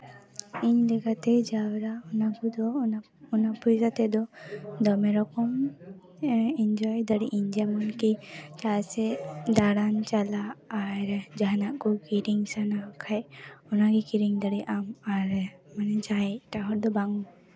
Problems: continuous background conversations